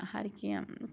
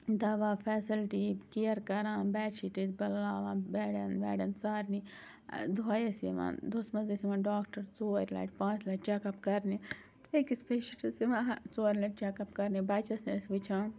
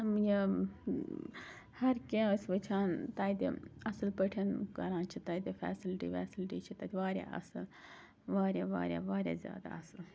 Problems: constant background noise